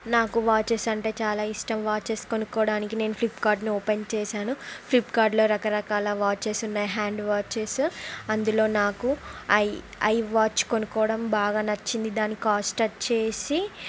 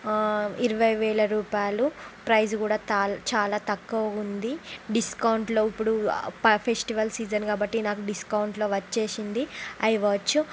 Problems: none marked